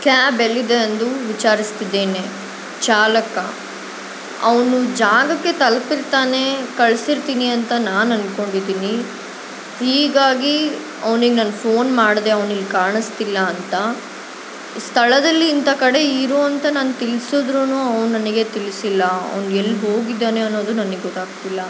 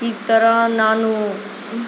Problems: constant background noise